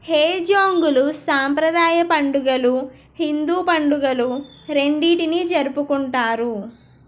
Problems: background sounds at intervals